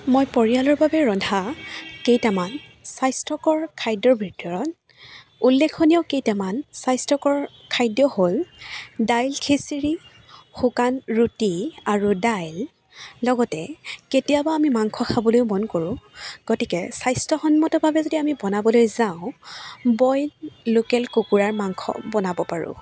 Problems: none marked